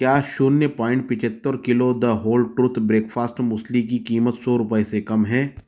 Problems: none marked